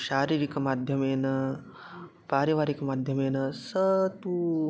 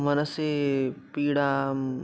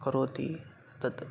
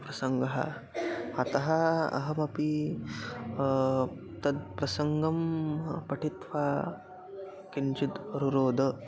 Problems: constant background noise, continuous background conversations